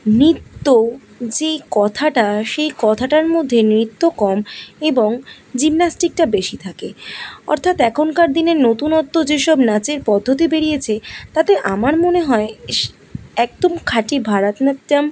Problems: none marked